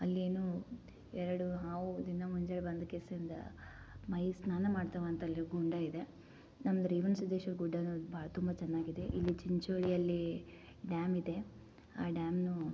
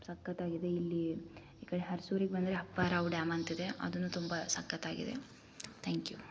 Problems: low volume